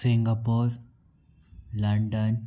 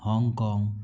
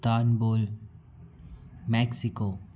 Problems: constant background noise